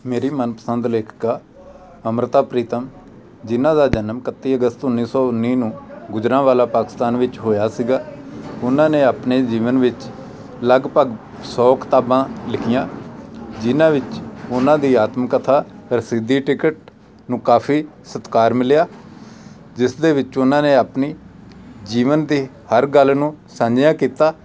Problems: background conversations at intervals